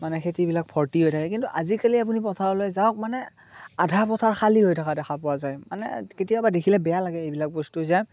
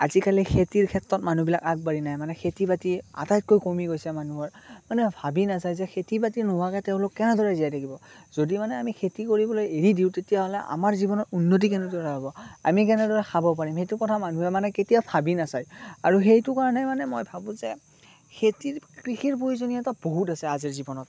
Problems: constant background noise